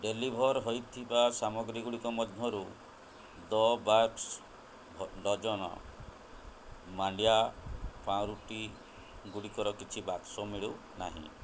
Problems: none marked